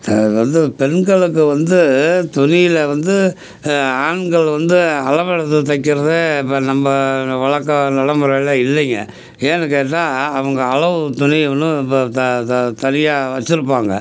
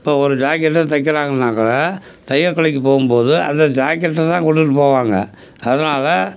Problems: none marked